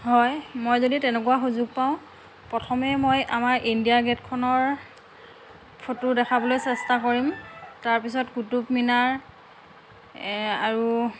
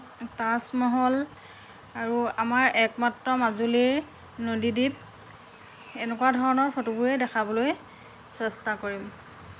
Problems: constant background noise